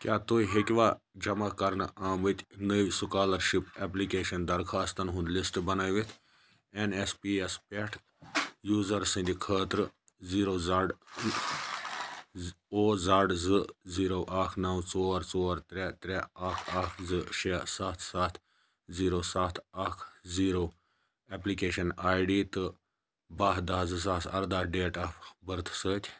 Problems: none marked